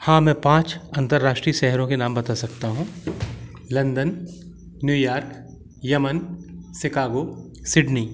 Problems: none marked